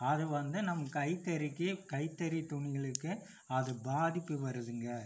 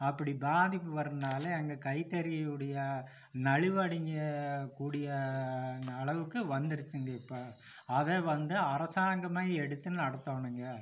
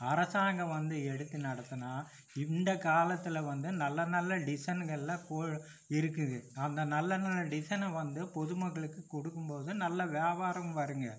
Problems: none marked